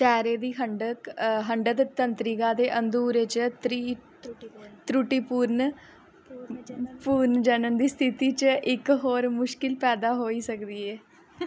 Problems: background conversations at intervals